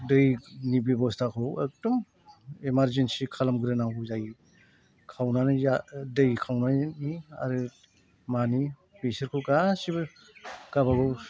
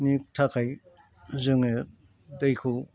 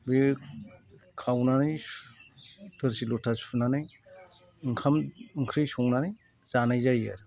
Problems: none marked